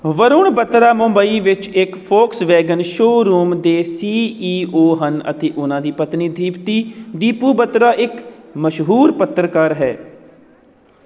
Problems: none marked